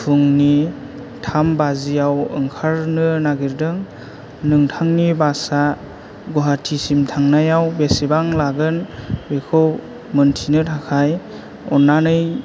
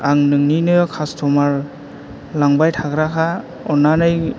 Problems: low volume